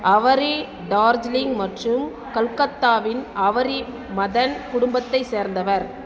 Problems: background conversations at intervals